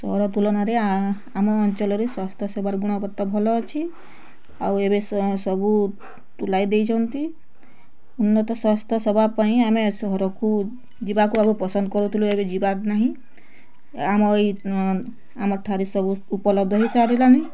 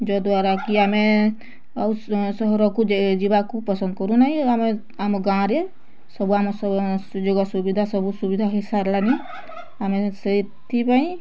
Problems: constant background noise, continuous background conversations